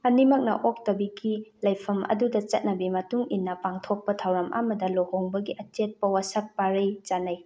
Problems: none marked